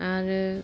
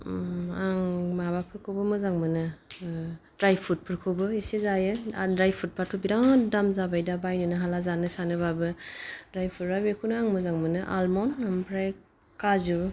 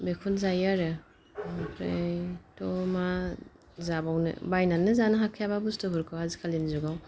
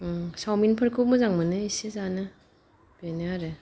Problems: none marked